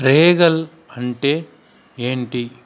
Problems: constant background noise, background conversations at intervals